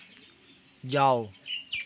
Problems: constant background noise